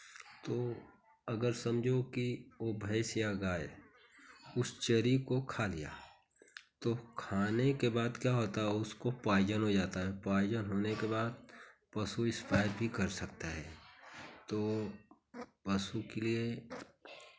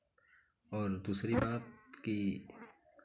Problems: none marked